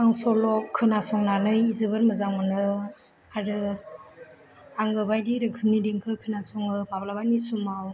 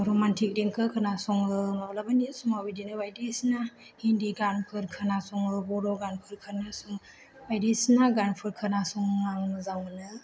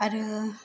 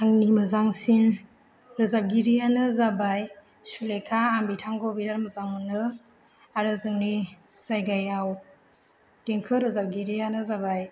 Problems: low volume